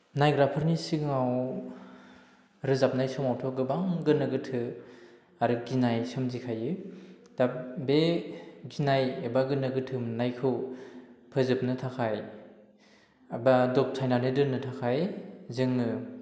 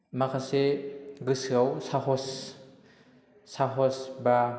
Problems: low volume